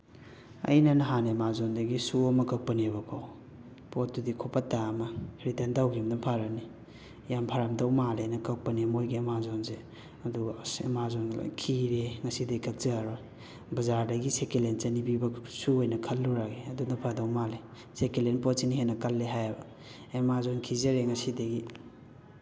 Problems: constant background noise, background conversations at intervals, echo